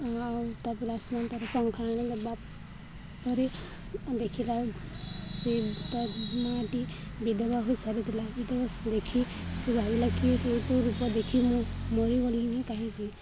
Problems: constant background noise, continuous background conversations